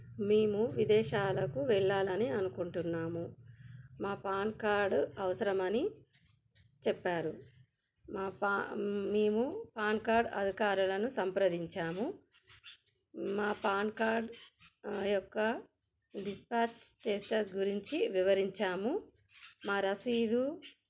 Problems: none marked